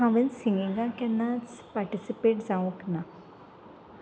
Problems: background sounds at intervals